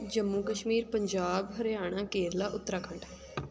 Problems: constant background noise